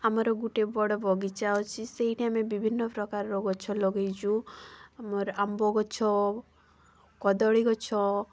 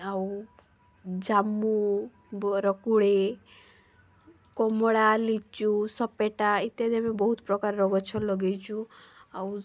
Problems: none marked